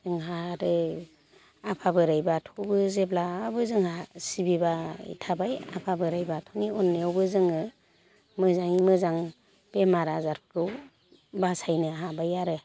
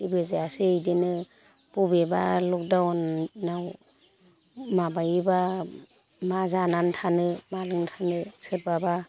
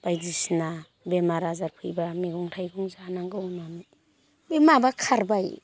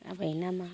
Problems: none marked